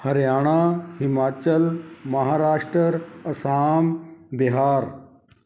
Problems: background conversations at intervals